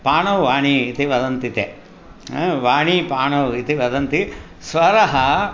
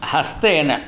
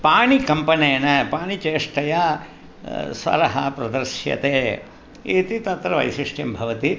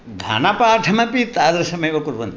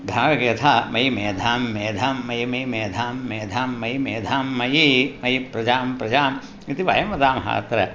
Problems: none marked